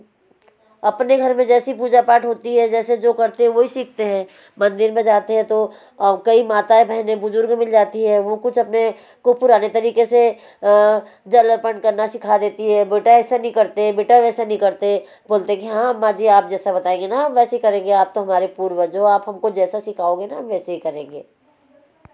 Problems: constant background noise